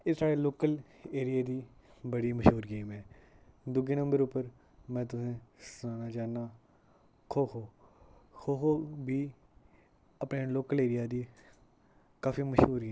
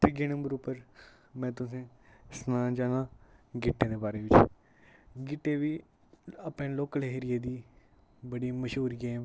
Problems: background sounds at intervals, low volume